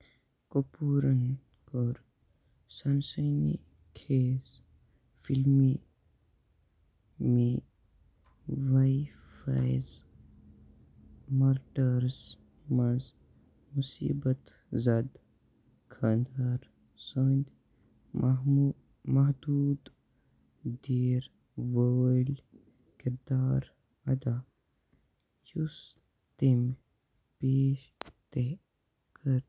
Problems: low volume